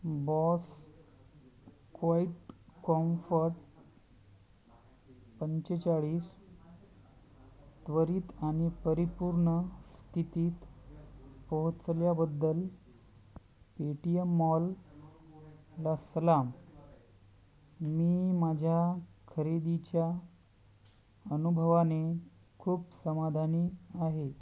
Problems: none marked